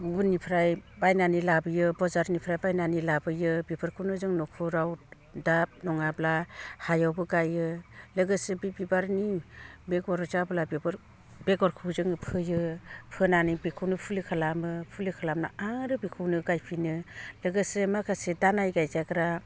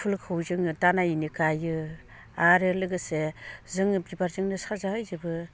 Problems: low volume